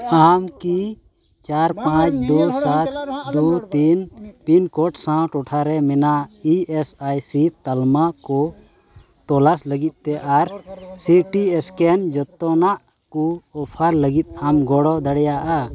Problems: continuous background conversations, low volume